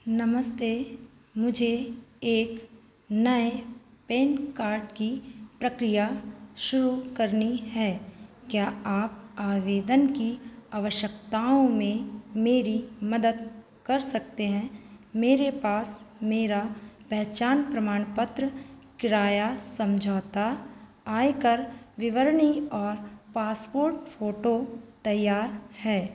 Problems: background sounds at intervals, echo